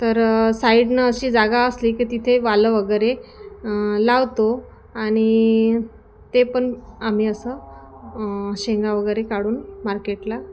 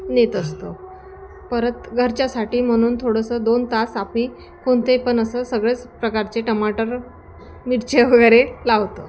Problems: constant background noise, background conversations at intervals